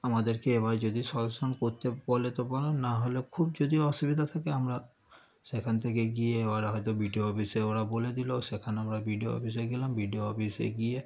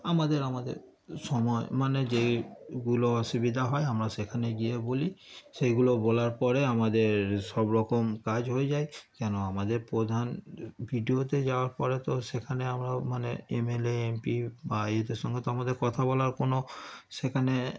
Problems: none marked